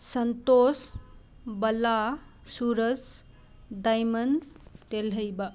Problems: background sounds at intervals